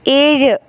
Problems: background sounds at intervals